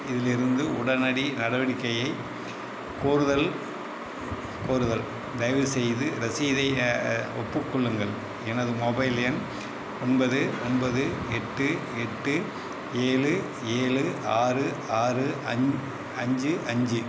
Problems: constant background noise